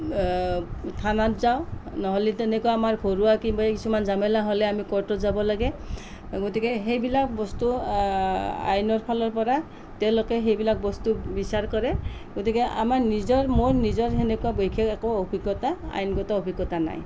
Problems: none marked